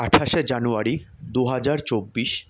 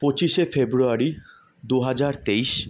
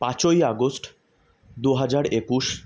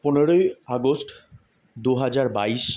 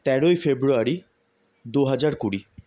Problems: background sounds at intervals